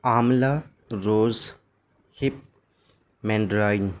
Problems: constant background noise